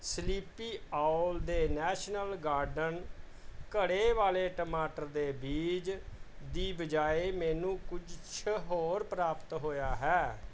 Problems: background sounds at intervals